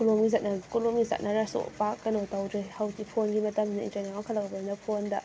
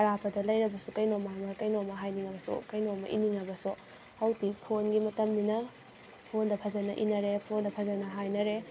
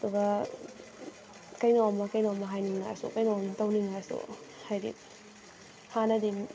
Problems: constant background noise, background conversations at intervals